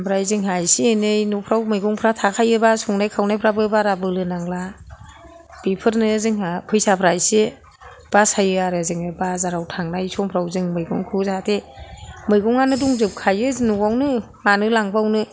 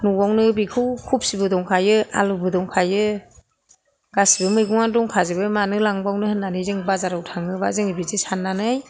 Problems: none marked